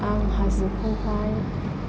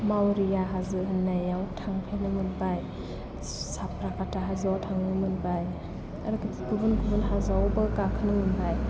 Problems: constant background noise